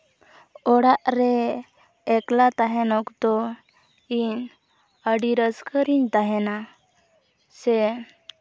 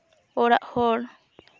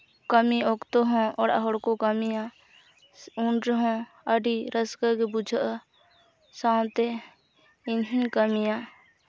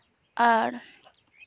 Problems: none marked